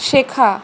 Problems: constant background noise